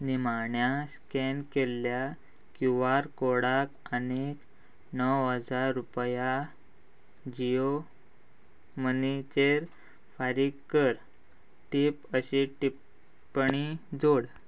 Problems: constant background noise